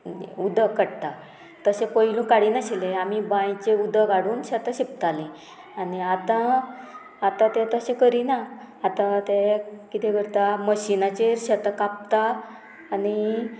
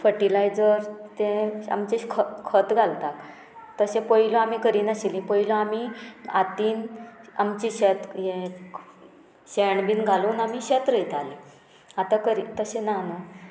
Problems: background sounds at intervals